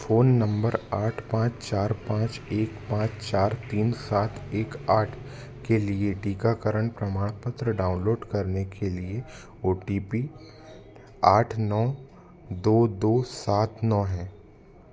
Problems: constant background noise, continuous background conversations